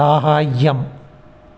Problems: none marked